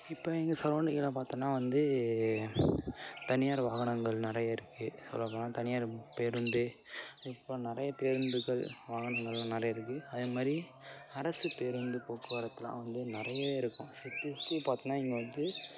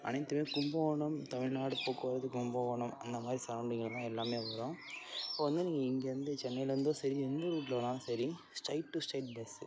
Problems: constant background noise